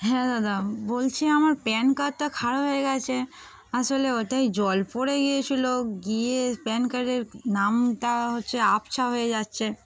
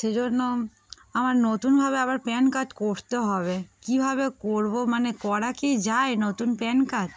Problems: background sounds at intervals, continuous background conversations